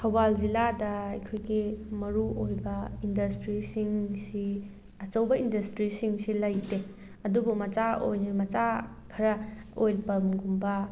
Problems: background sounds at intervals